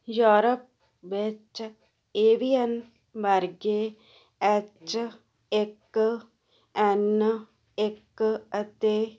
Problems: none marked